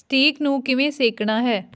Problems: none marked